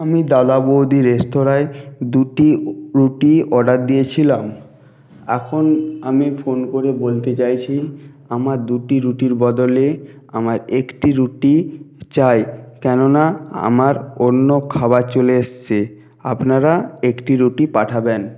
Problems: none marked